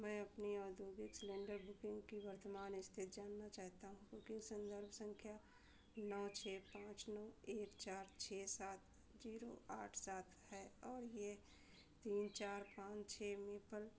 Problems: background sounds at intervals, low volume